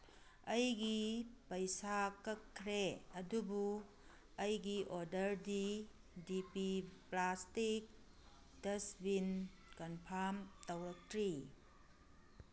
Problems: none marked